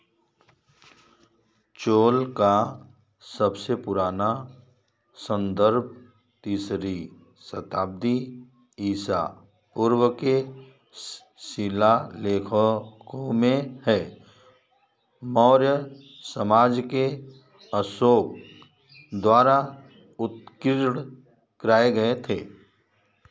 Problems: background sounds at intervals